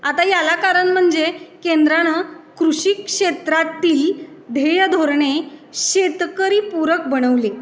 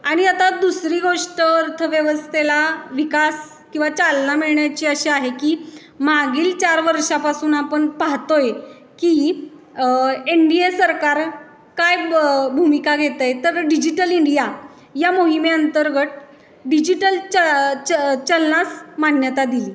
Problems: none marked